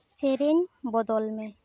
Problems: background sounds at intervals